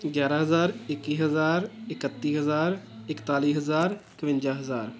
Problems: continuous background conversations